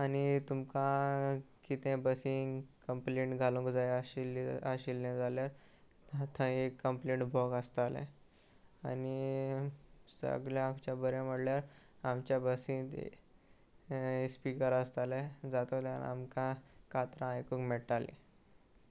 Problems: none marked